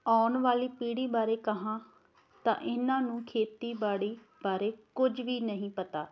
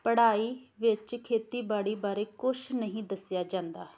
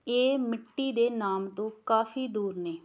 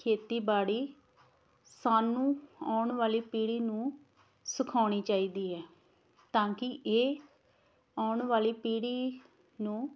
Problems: background sounds at intervals